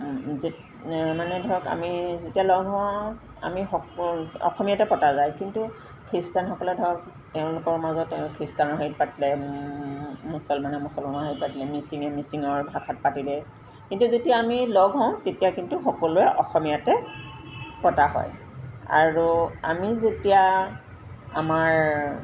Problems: constant background noise